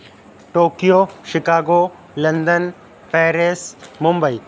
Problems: constant background noise